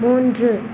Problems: constant background noise